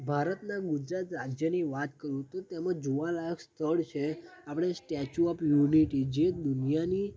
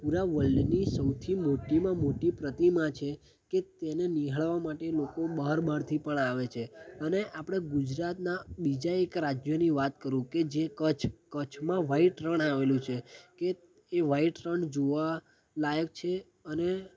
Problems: constant background noise